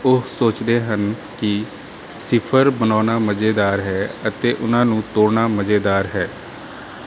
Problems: background sounds at intervals